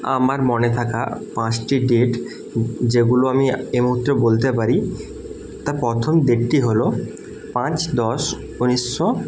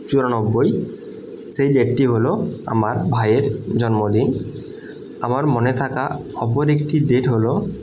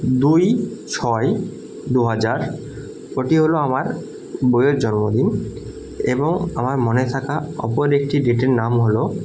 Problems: constant background noise